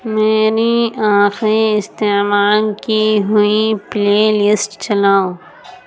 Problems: constant background noise